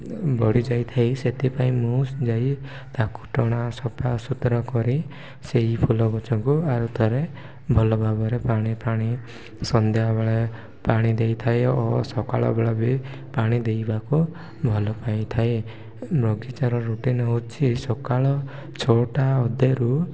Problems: low volume